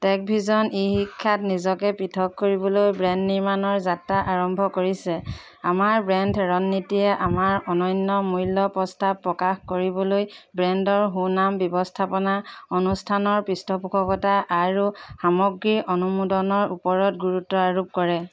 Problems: background sounds at intervals